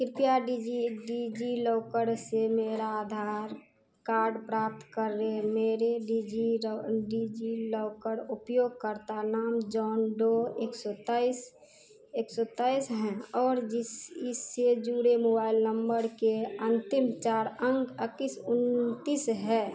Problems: constant background noise